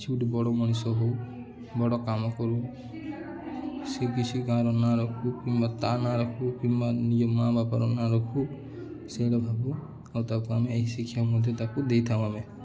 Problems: constant background noise, continuous background conversations